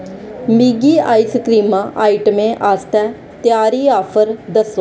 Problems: constant background noise